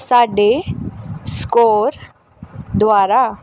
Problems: constant background noise